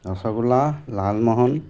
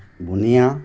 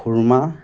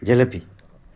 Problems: constant background noise